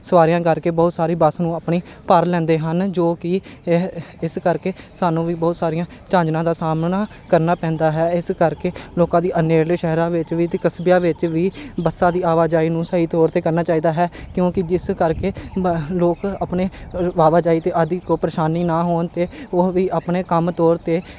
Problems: constant background noise